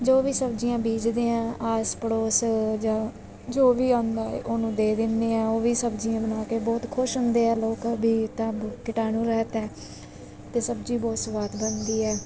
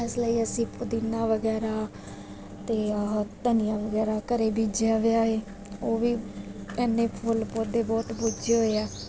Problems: constant background noise